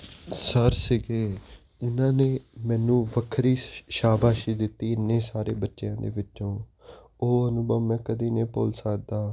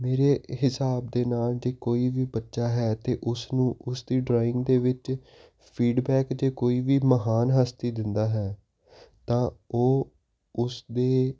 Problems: constant background noise